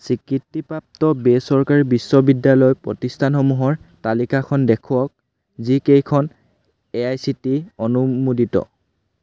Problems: none marked